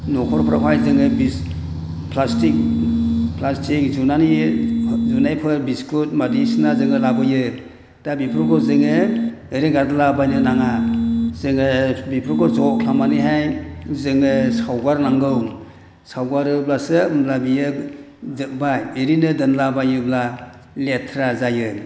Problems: none marked